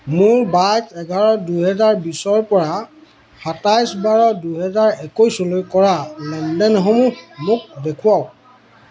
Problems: continuous background conversations